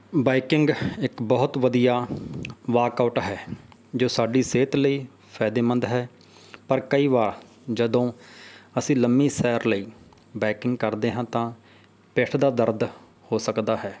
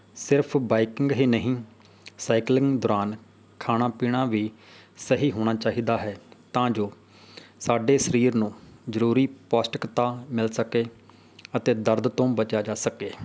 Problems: none marked